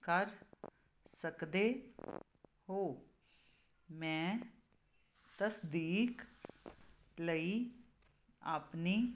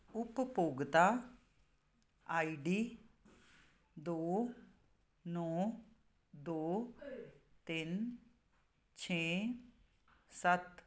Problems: constant background noise